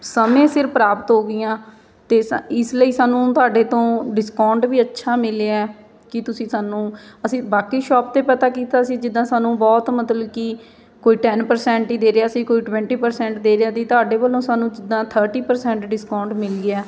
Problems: none marked